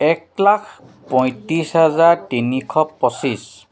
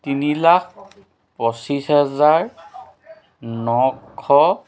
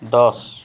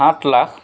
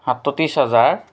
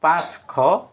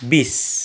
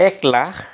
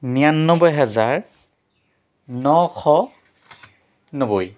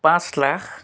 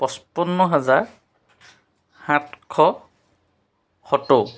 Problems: constant background noise